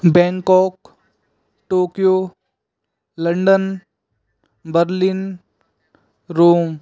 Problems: constant background noise